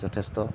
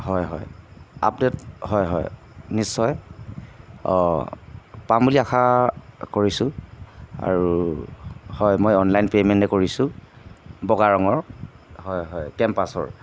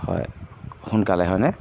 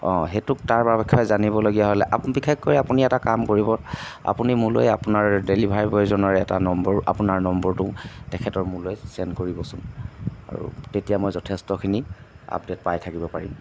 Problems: constant background noise